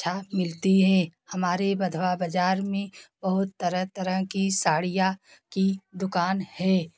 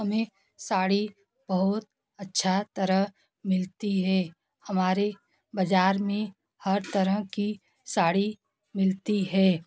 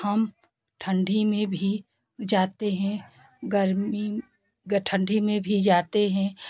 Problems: background sounds at intervals, continuous background conversations